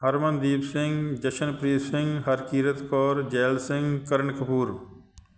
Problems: none marked